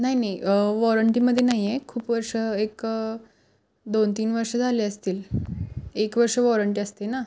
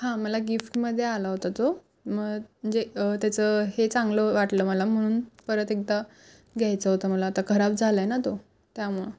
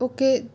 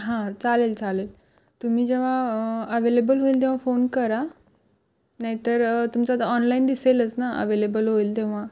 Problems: background sounds at intervals